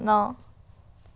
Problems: background sounds at intervals